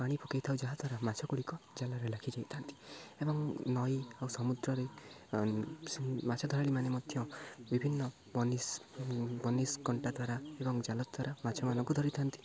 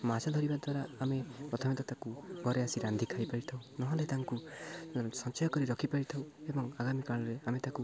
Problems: constant background noise, continuous background conversations